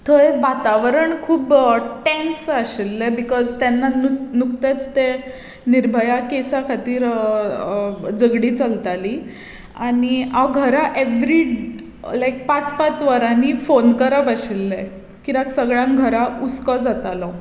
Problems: none marked